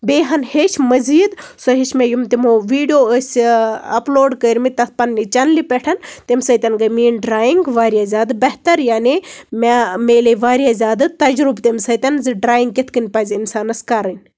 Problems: background sounds at intervals